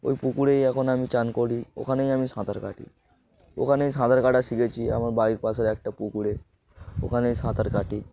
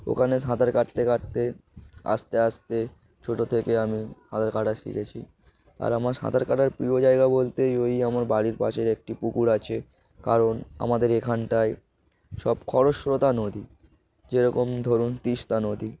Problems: background sounds at intervals